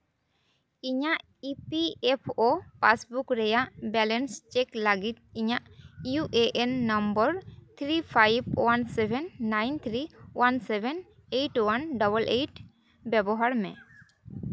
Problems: none marked